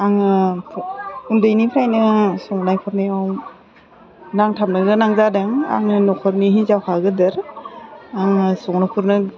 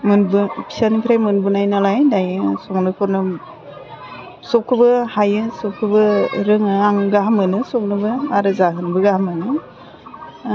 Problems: constant background noise